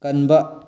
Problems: low volume